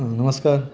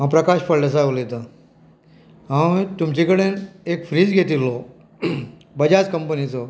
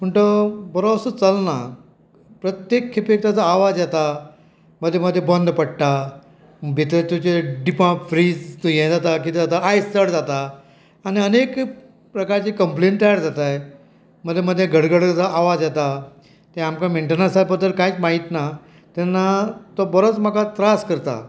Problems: none marked